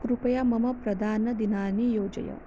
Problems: low volume